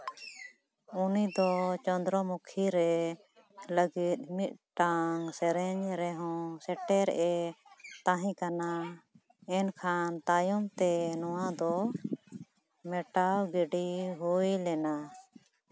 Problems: none marked